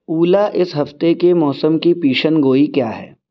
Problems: none marked